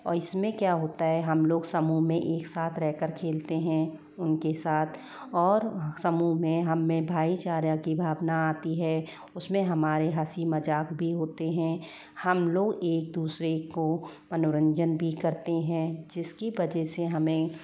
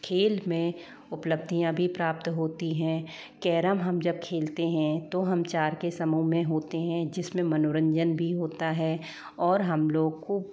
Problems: low volume